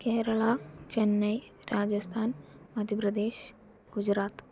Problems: low volume